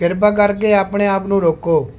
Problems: none marked